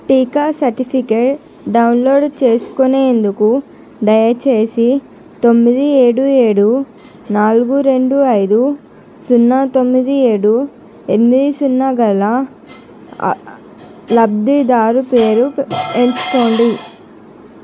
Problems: constant background noise